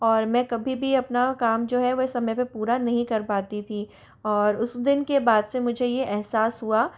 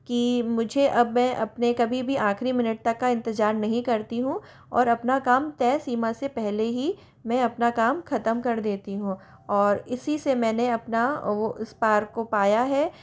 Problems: none marked